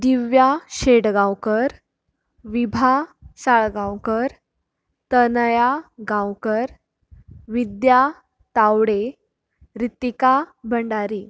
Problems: none marked